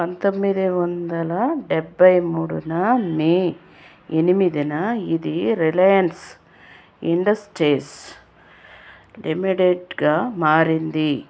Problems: constant background noise